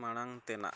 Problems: low volume